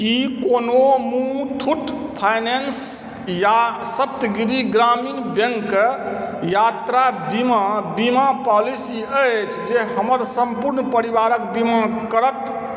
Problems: none marked